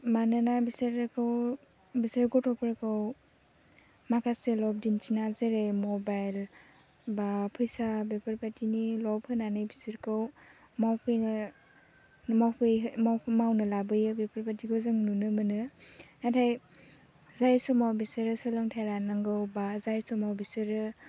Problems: low volume